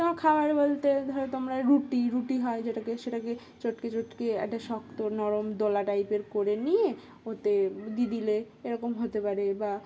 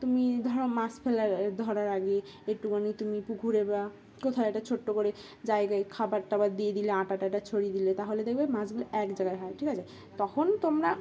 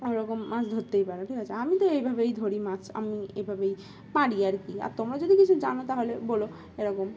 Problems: constant background noise, background conversations at intervals